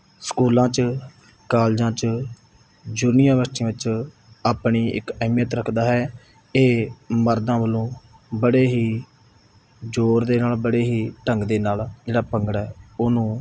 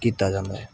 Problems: none marked